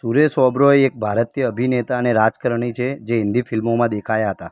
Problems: background conversations at intervals